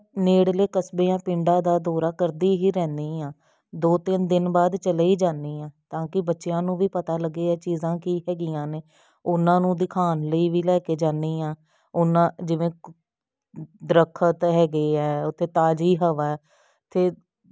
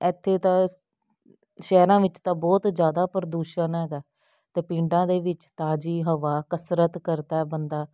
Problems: none marked